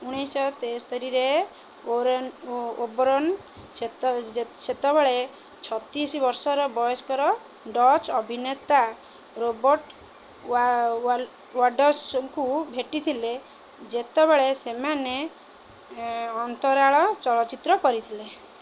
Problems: none marked